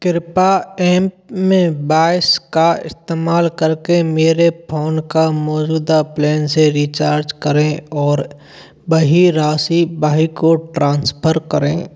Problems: constant background noise